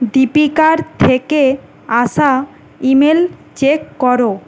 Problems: constant background noise